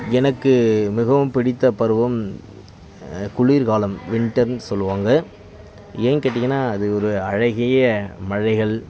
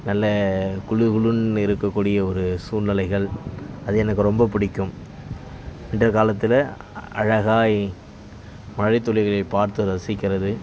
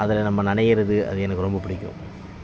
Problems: constant background noise